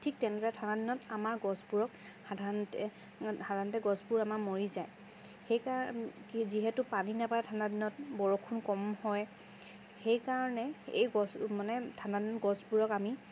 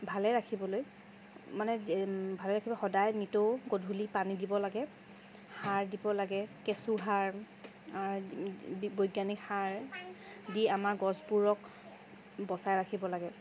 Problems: constant background noise